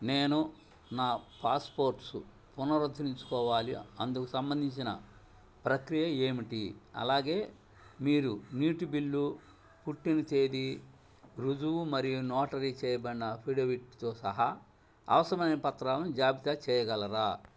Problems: low volume